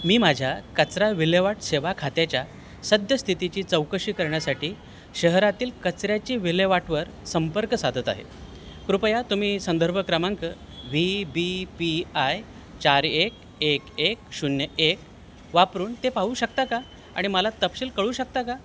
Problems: constant background noise